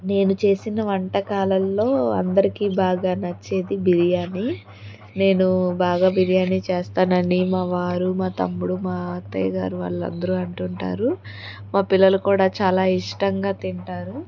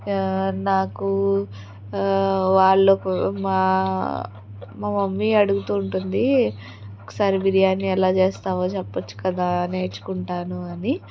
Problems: continuous background conversations